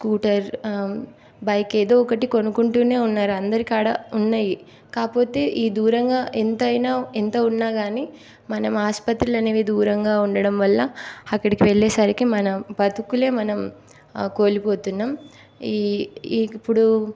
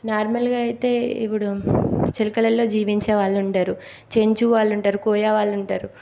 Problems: constant background noise